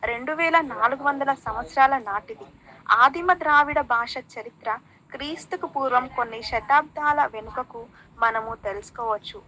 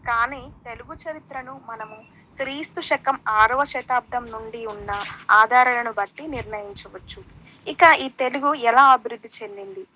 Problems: background sounds at intervals, background conversations at intervals